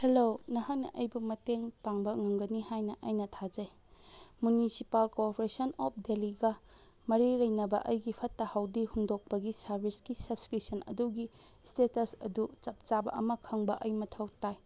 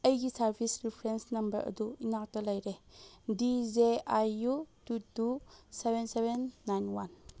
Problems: none marked